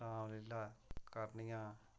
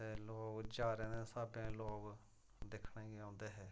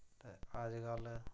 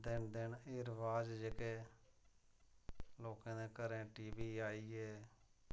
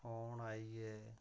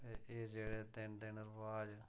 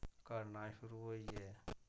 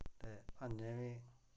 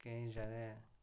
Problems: low volume